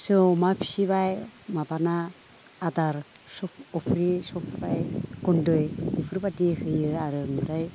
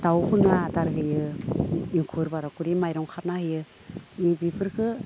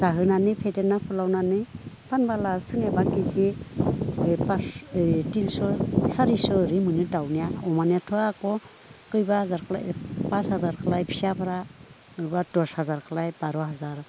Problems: low volume